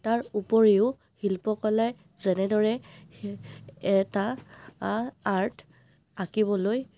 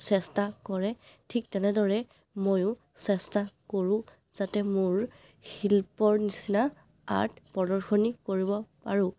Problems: background sounds at intervals